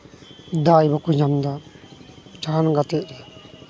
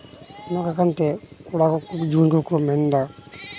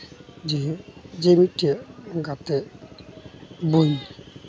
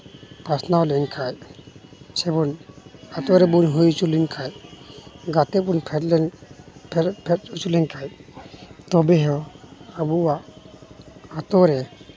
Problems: constant background noise